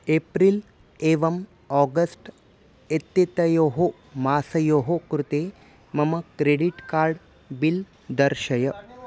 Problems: constant background noise, background conversations at intervals